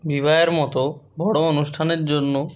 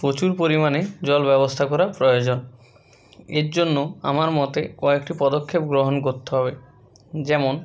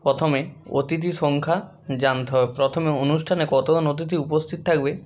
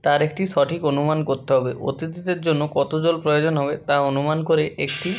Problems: background sounds at intervals